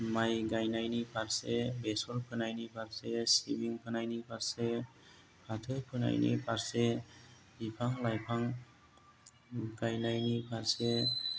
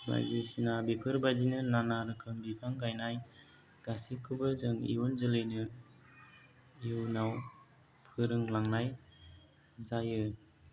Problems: low volume